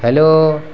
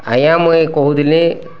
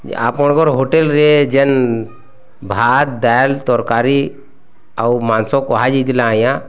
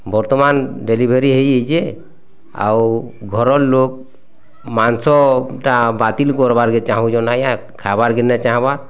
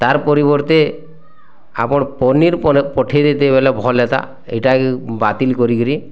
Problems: constant background noise